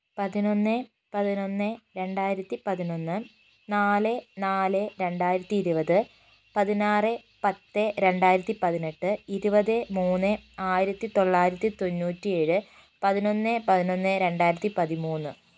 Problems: constant background noise